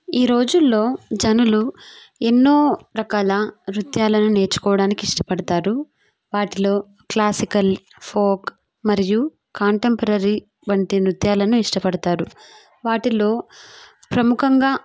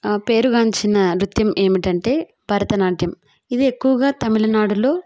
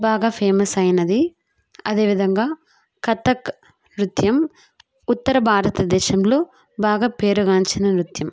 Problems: none marked